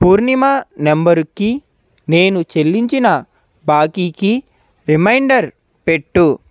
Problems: constant background noise